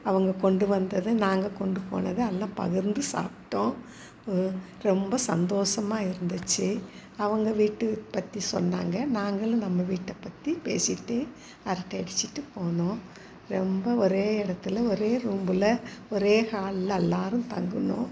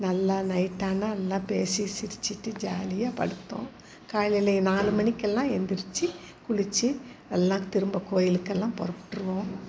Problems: constant background noise